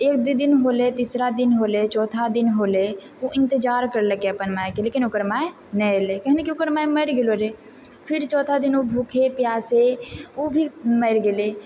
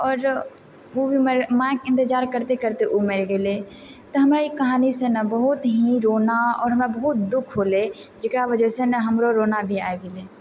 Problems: none marked